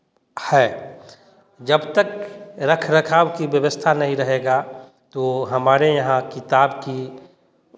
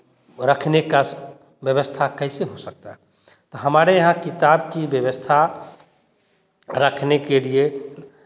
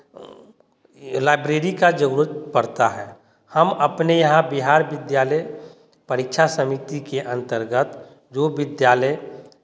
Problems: continuous background conversations